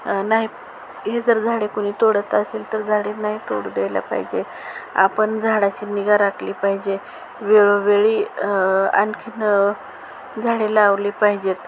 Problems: constant background noise